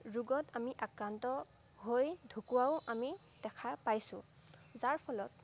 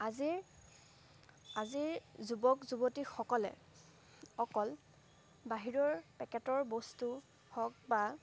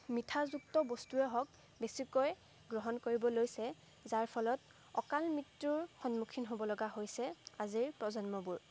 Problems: background sounds at intervals